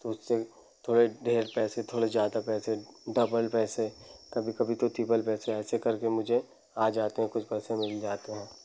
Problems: none marked